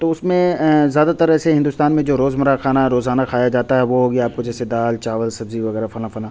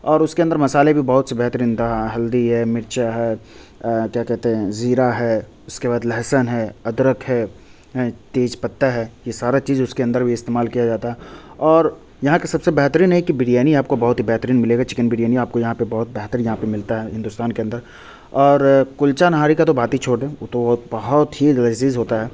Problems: none marked